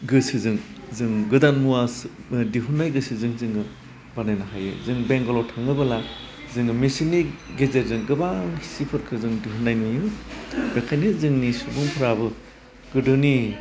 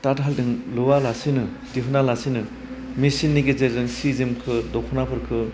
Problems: constant background noise